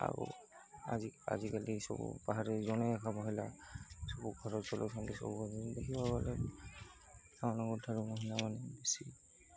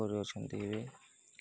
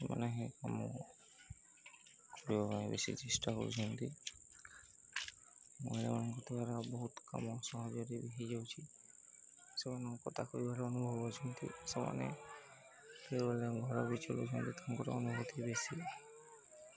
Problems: constant background noise, continuous background conversations